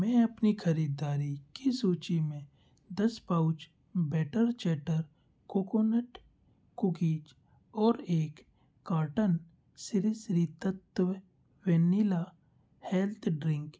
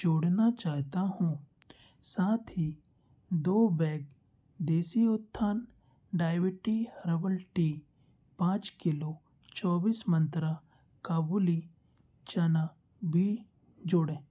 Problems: none marked